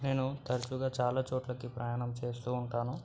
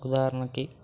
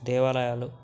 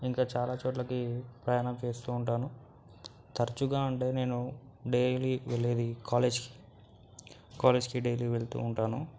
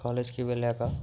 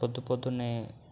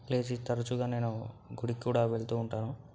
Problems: background sounds at intervals